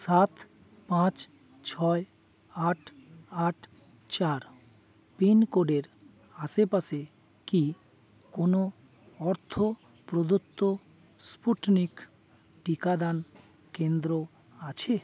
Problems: none marked